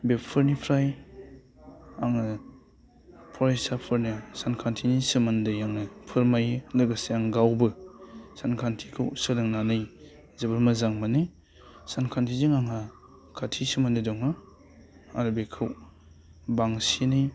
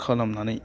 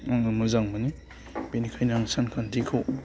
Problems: low volume